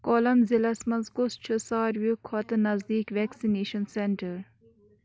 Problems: background sounds at intervals